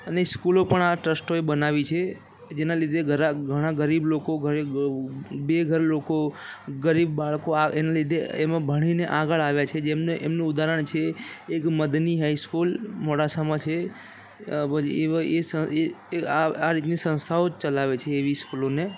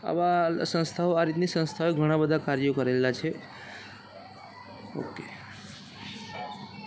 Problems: constant background noise, background conversations at intervals